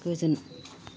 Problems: low volume